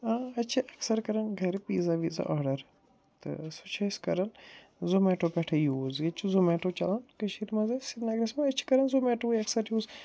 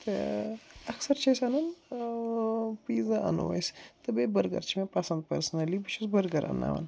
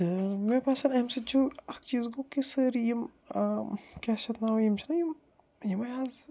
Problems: low volume